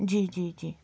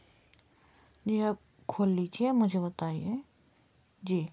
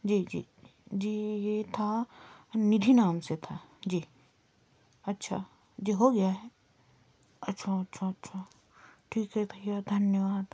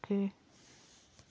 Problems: constant background noise